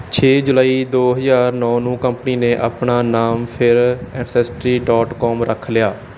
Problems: background sounds at intervals